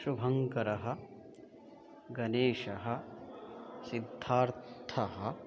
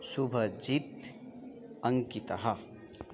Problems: continuous background conversations